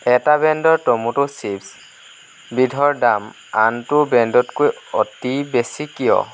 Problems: constant background noise